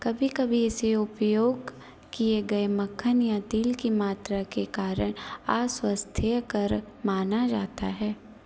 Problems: constant background noise